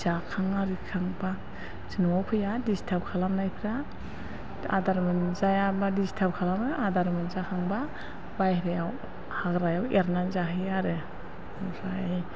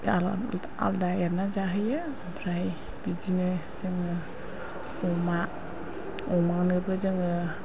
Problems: constant background noise